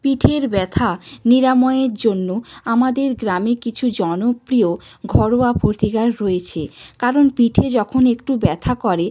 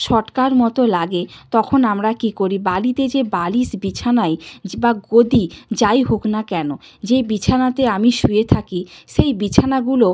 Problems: constant background noise